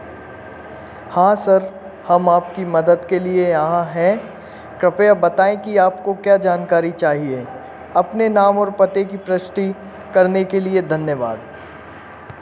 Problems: constant background noise